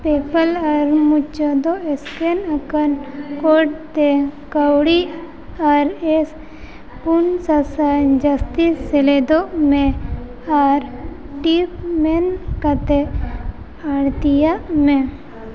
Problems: constant background noise, background conversations at intervals